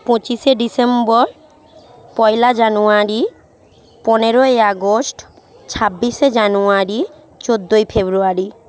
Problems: background conversations at intervals